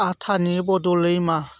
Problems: none marked